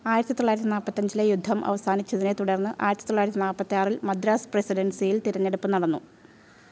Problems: none marked